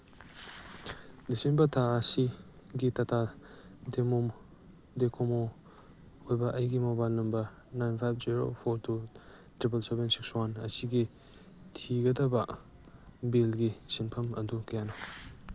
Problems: background sounds at intervals